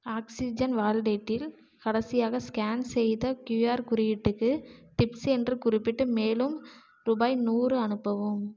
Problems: none marked